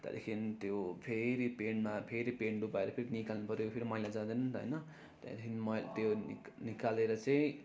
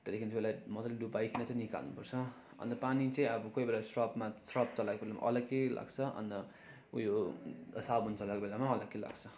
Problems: none marked